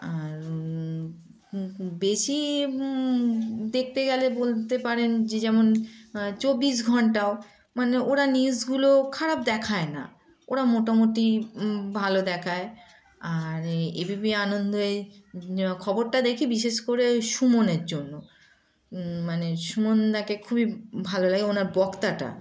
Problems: background sounds at intervals